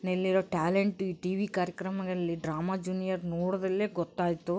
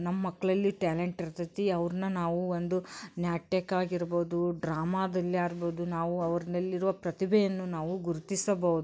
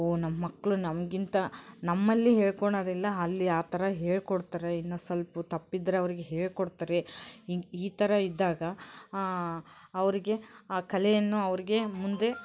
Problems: background sounds at intervals